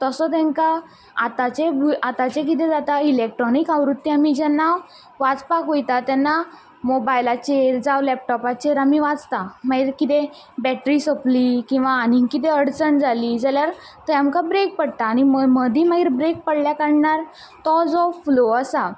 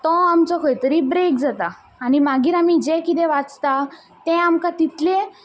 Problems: none marked